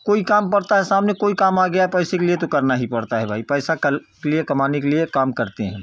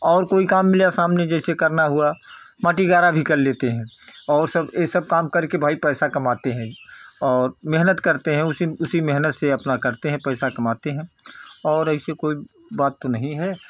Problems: constant background noise